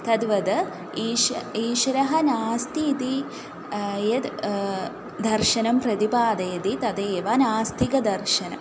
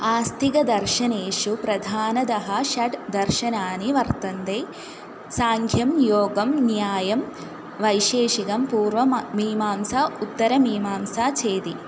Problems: constant background noise